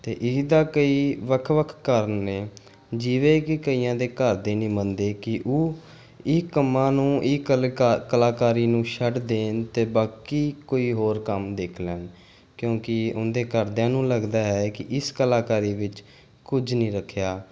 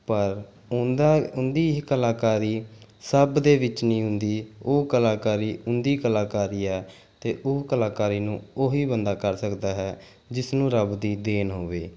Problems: background sounds at intervals